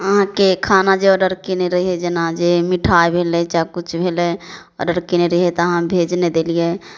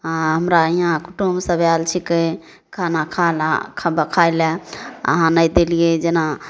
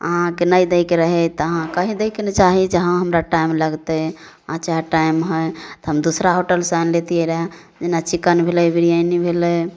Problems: none marked